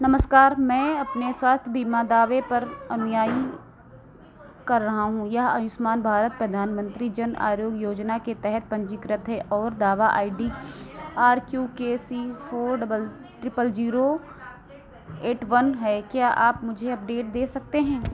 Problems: none marked